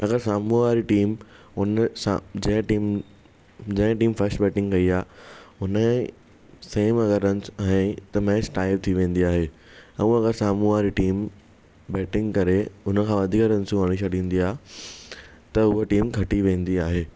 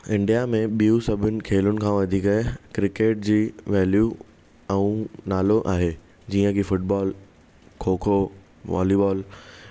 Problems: none marked